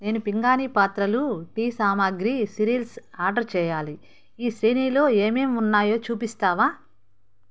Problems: none marked